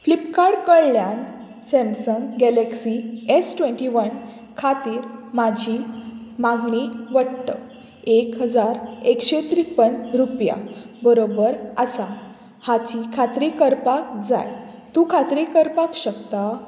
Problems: background sounds at intervals